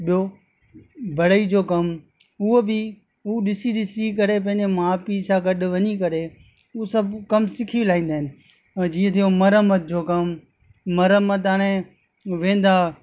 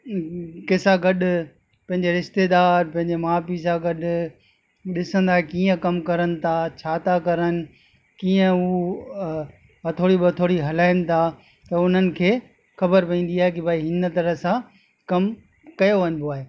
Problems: constant background noise, echo